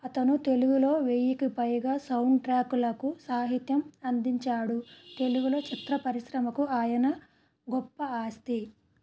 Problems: none marked